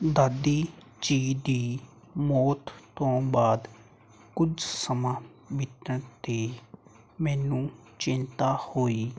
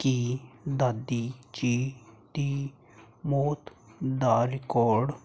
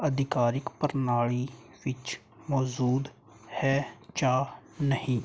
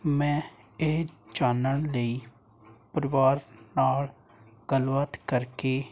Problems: none marked